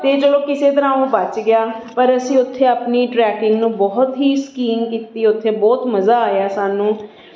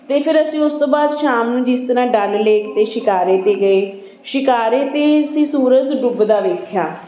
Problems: continuous background conversations